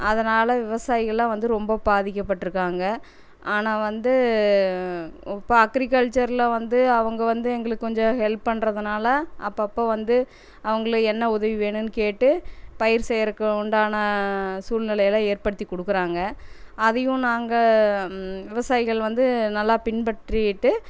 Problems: none marked